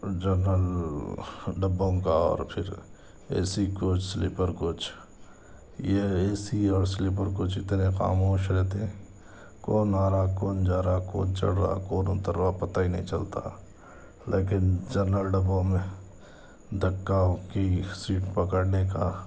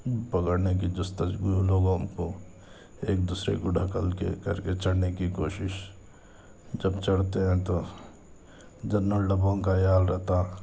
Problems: none marked